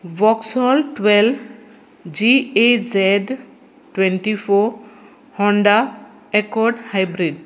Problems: constant background noise